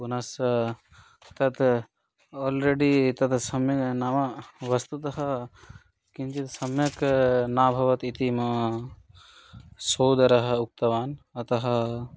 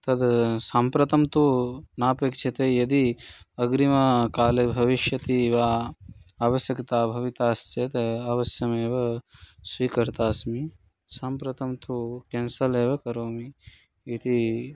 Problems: constant background noise